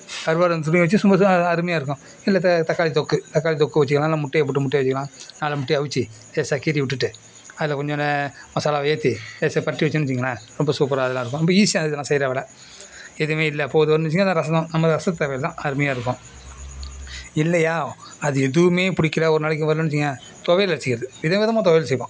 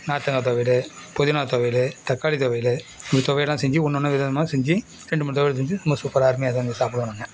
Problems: background sounds at intervals